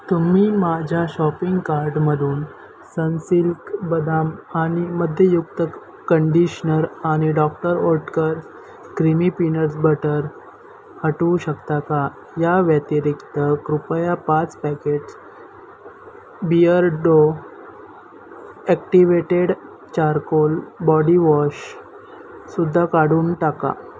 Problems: none marked